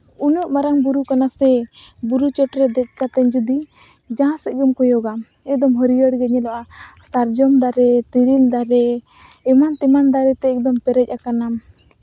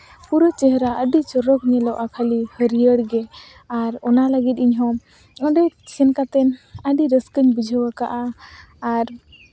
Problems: none marked